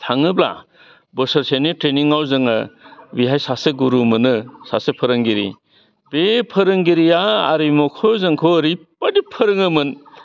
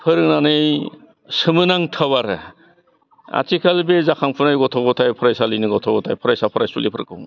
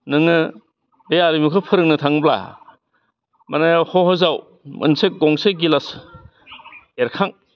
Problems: constant background noise